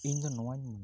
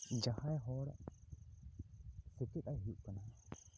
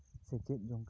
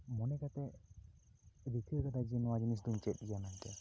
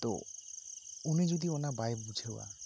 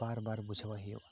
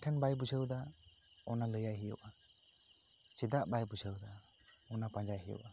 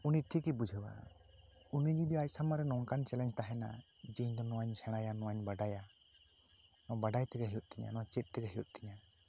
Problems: constant background noise